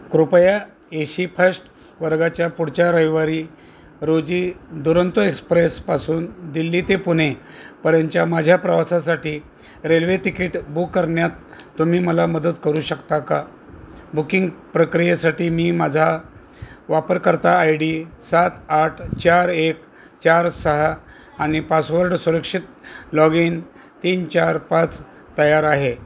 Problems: none marked